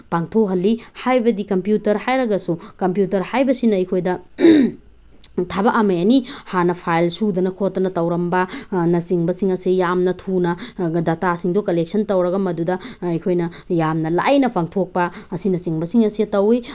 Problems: none marked